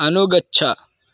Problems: none marked